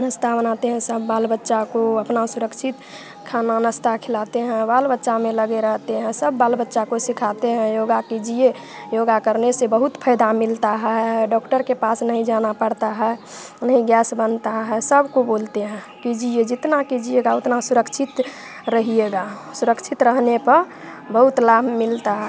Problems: constant background noise